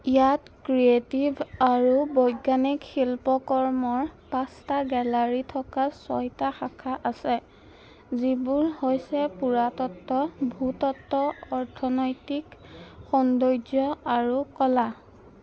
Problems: constant background noise